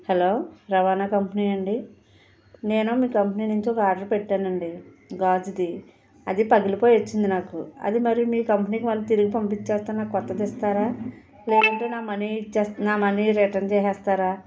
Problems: background sounds at intervals